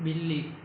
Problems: low volume